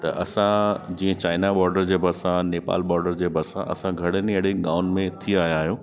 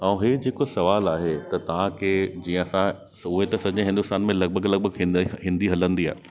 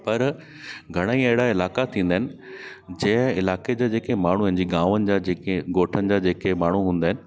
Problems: constant background noise